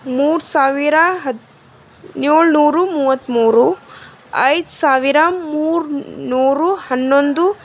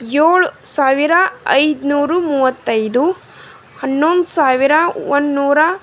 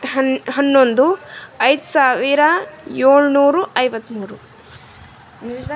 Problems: none marked